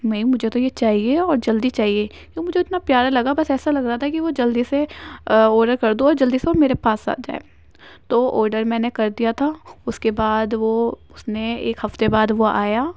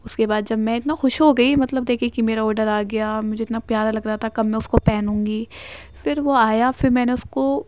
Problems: none marked